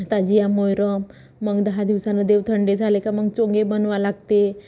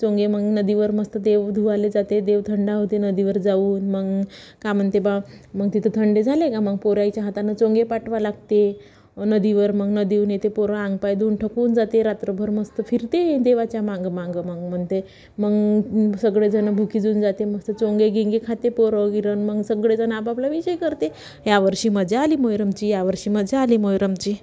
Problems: background sounds at intervals, background conversations at intervals